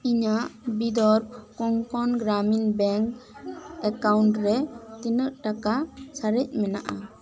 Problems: background conversations at intervals